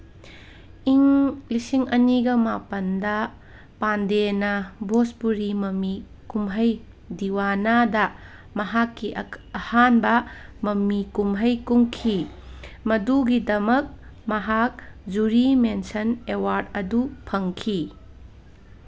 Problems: background sounds at intervals, background conversations at intervals